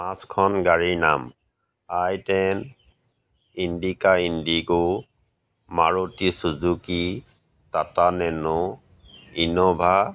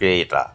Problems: background sounds at intervals